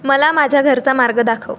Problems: background sounds at intervals